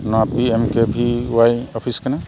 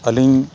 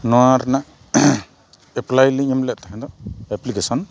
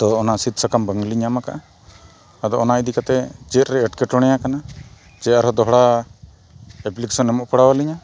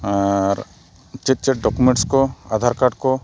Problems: none marked